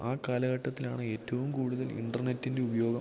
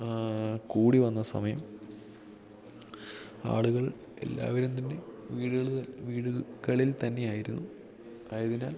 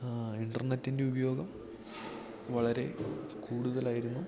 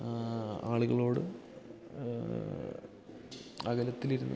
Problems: background sounds at intervals